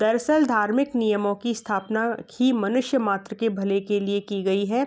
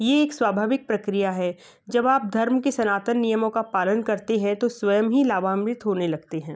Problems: constant background noise